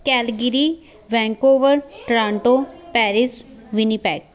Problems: none marked